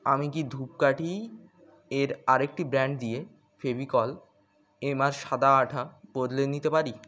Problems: constant background noise